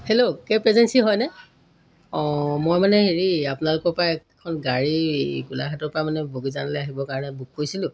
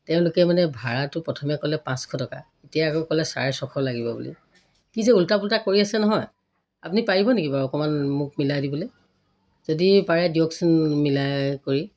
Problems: none marked